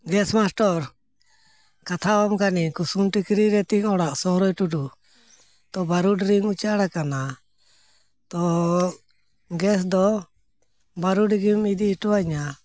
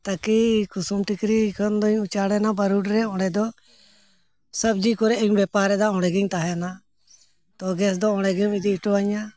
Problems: none marked